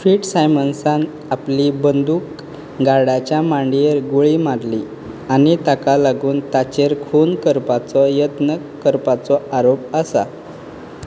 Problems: constant background noise